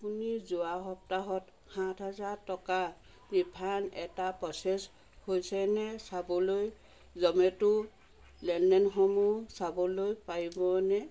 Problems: constant background noise